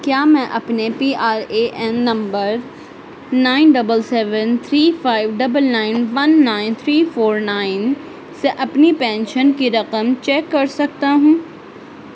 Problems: constant background noise